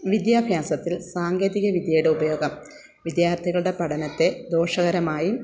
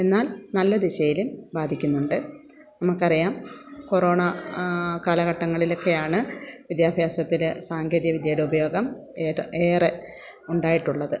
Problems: none marked